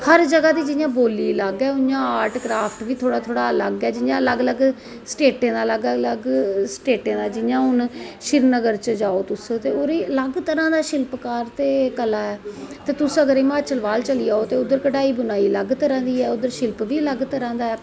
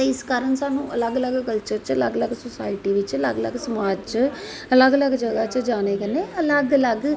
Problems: constant background noise, echo